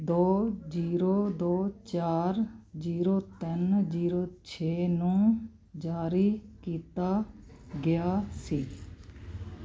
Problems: constant background noise